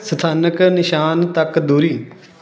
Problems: background conversations at intervals